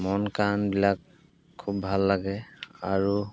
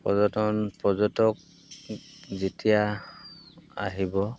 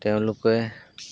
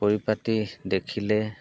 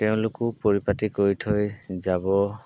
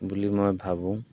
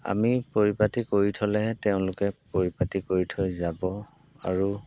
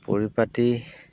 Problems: background sounds at intervals